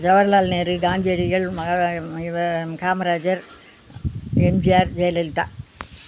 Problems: background sounds at intervals